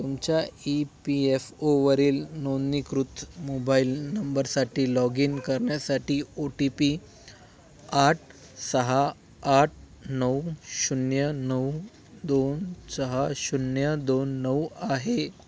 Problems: none marked